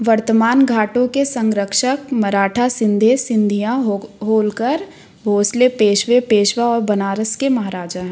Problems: none marked